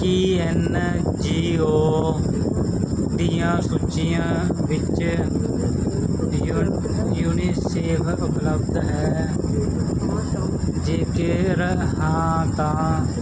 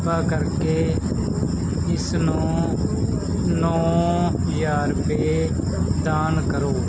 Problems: constant background noise, background conversations at intervals